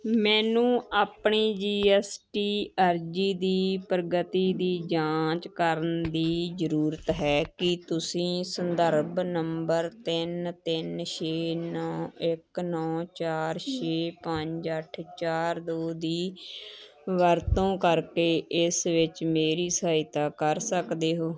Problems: continuous background conversations